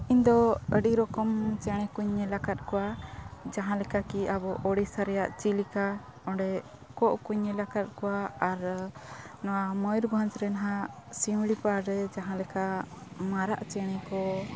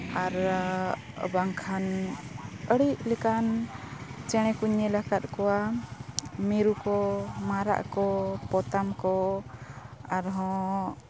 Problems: background sounds at intervals